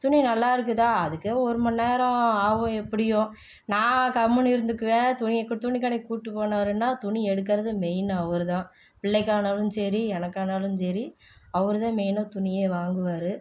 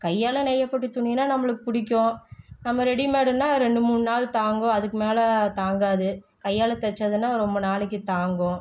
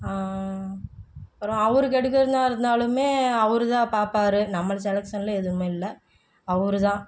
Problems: low volume